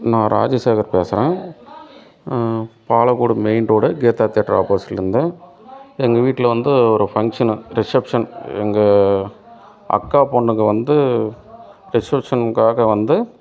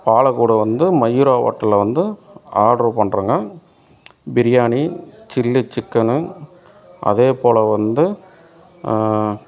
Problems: none marked